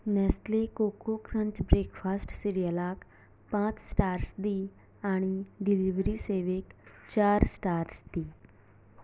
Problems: background sounds at intervals, low volume